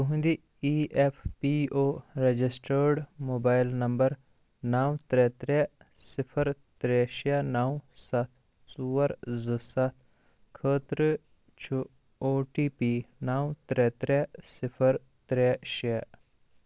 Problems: constant background noise